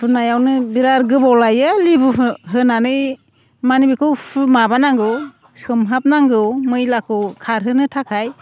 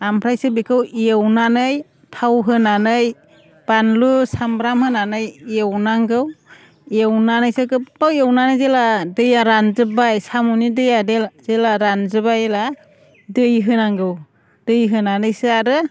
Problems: none marked